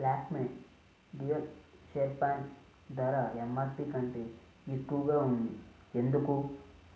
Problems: low volume